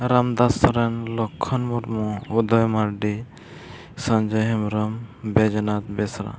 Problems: none marked